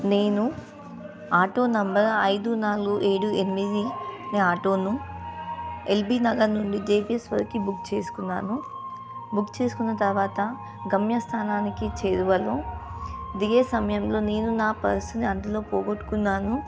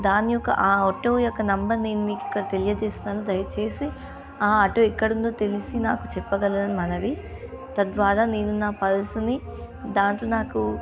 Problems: continuous background conversations